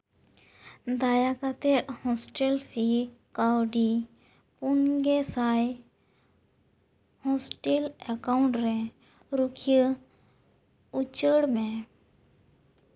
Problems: none marked